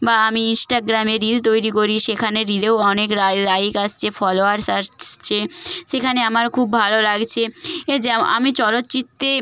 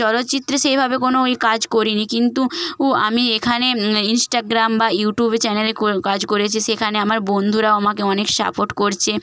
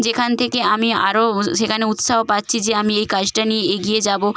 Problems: background sounds at intervals